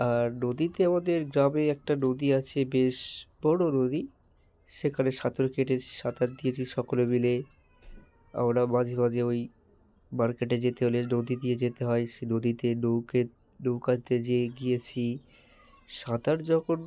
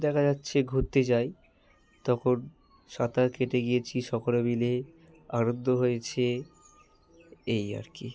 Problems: background sounds at intervals